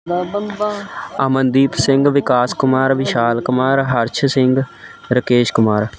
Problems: background conversations at intervals